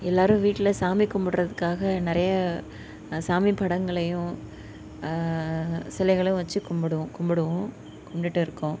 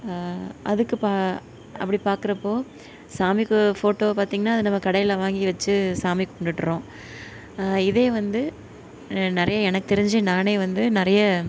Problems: none marked